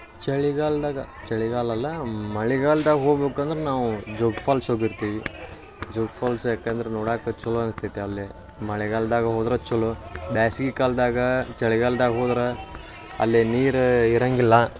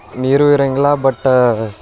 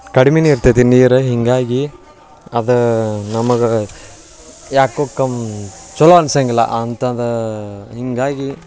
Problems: none marked